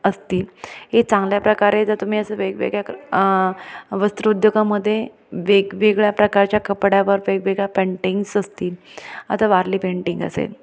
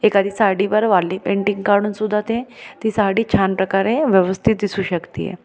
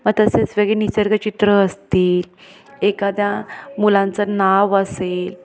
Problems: background sounds at intervals, background conversations at intervals, echo